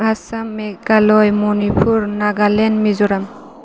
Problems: constant background noise